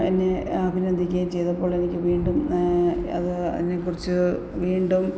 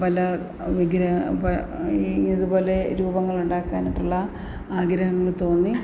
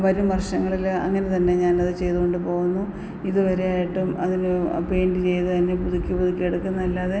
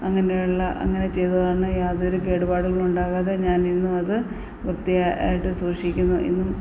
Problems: constant background noise